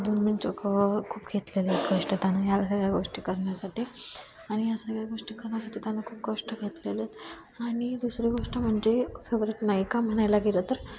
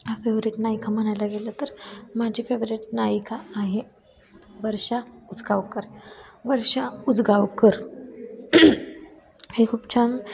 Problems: constant background noise, continuous background conversations